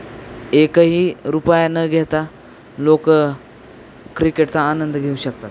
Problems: constant background noise, background conversations at intervals